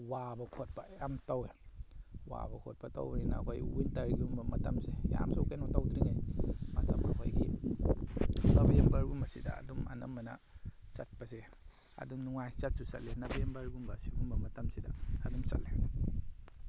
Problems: none marked